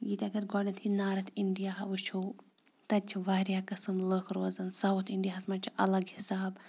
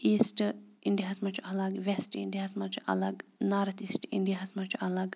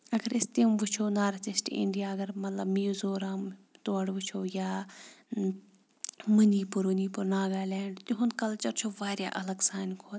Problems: background sounds at intervals